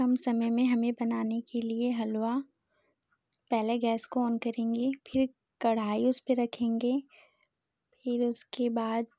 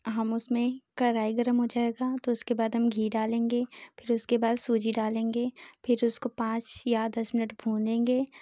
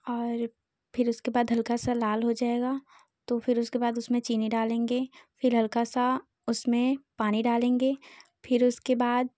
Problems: none marked